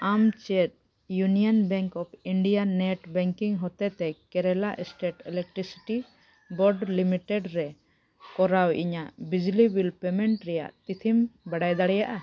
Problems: background sounds at intervals